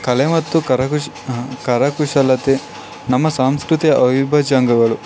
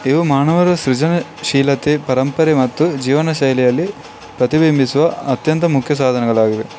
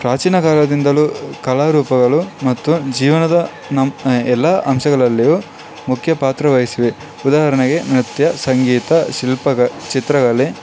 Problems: background sounds at intervals